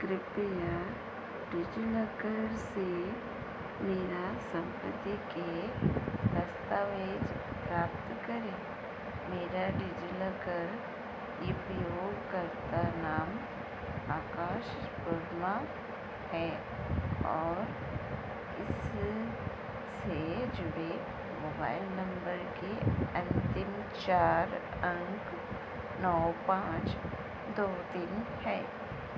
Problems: constant background noise